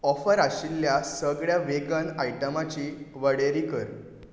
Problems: background sounds at intervals